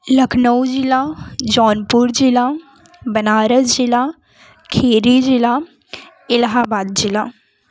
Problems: background sounds at intervals, continuous background conversations